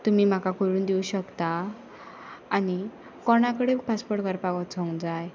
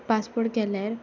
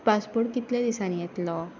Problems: background sounds at intervals